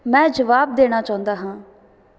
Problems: none marked